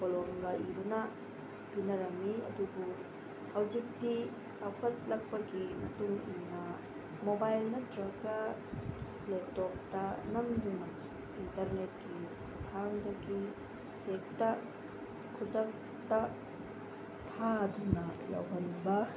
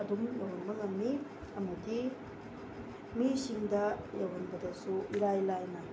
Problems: constant background noise